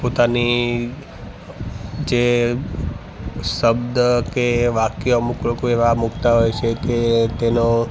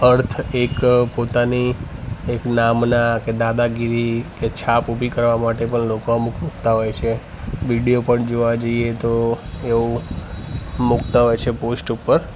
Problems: background sounds at intervals